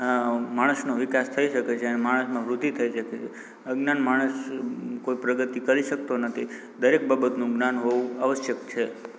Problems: constant background noise